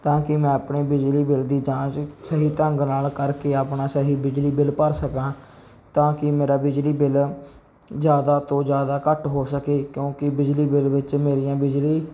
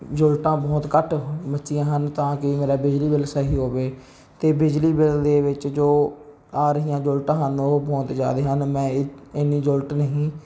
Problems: none marked